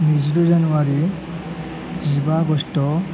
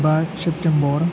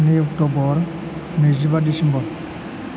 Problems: constant background noise